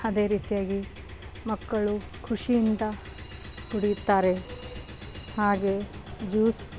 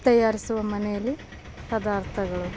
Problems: background sounds at intervals